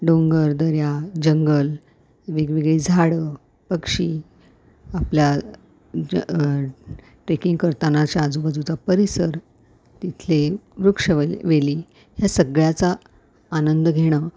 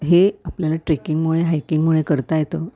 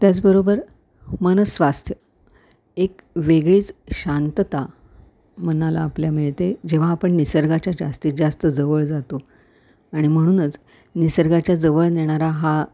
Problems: background sounds at intervals